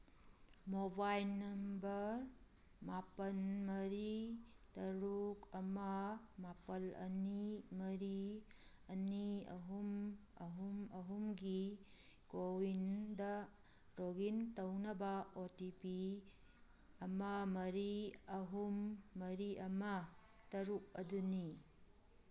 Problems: none marked